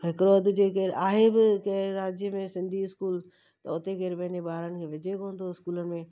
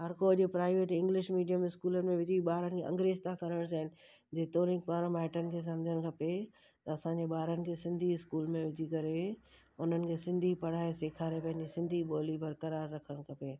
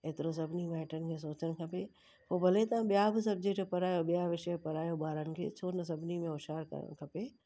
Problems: constant background noise